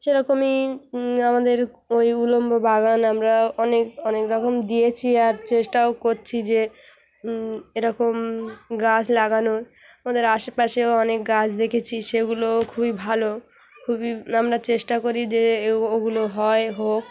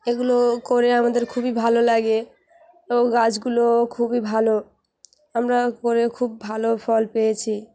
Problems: background sounds at intervals, background conversations at intervals